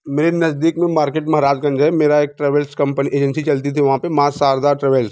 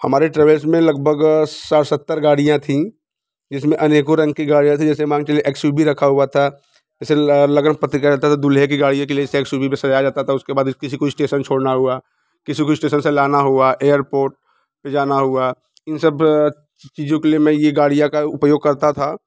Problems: background sounds at intervals